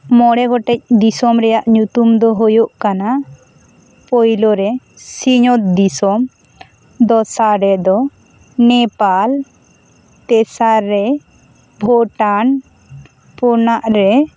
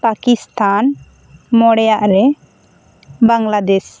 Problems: constant background noise